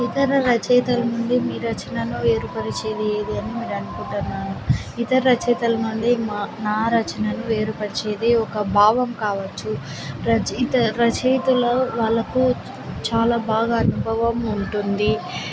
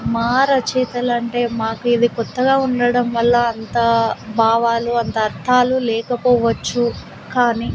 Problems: constant background noise